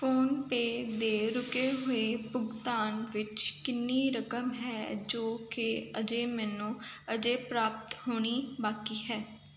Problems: none marked